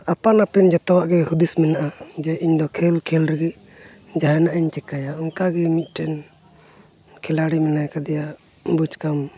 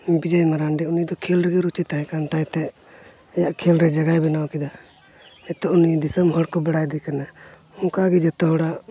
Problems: none marked